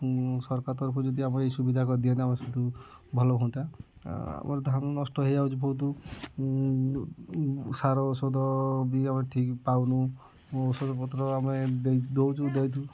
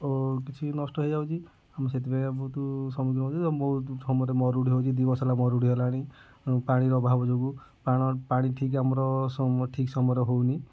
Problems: low volume